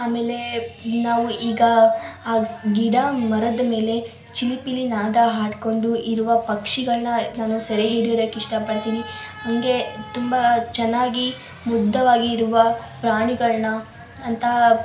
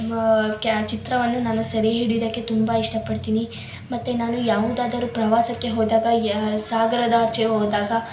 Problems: constant background noise, background conversations at intervals